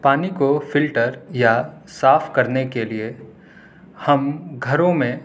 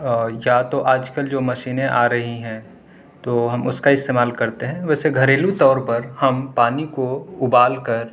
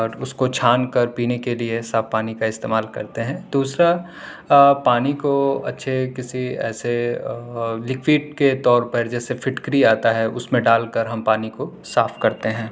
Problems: none marked